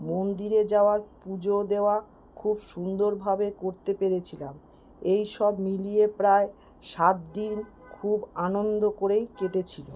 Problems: constant background noise